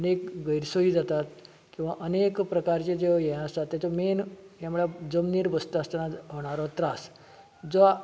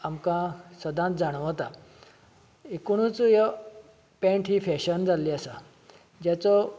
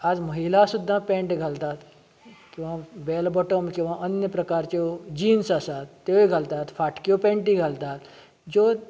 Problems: constant background noise